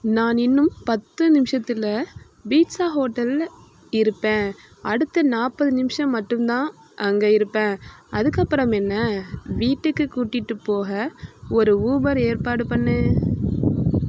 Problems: constant background noise